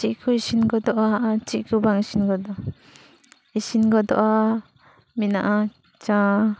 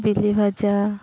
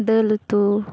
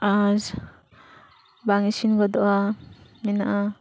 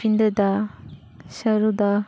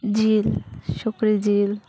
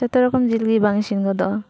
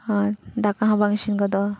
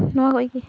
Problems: none marked